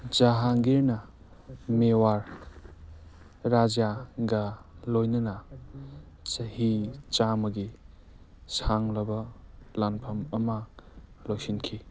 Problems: background sounds at intervals, background conversations at intervals